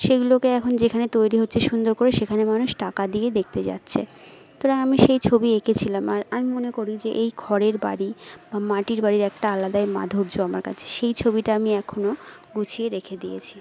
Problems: none marked